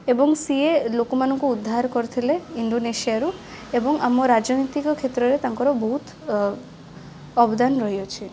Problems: constant background noise